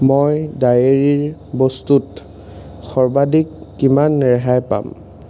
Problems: constant background noise